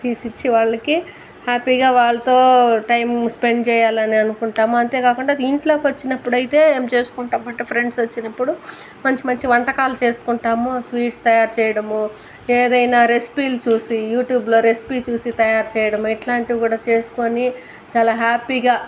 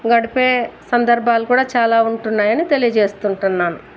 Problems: constant background noise